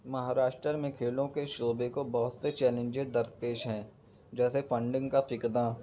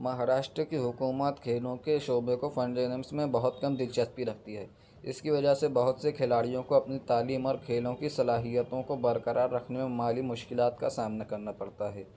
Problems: background sounds at intervals